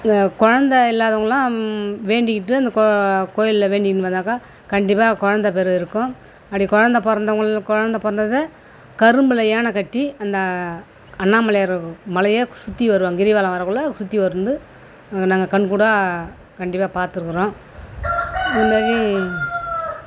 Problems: constant background noise